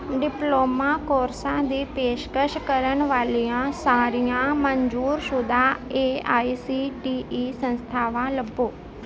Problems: constant background noise